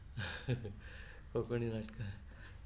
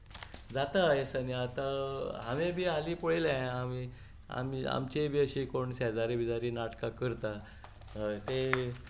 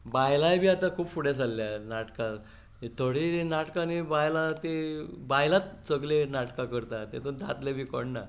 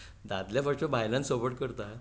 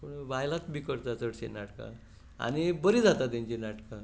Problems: none marked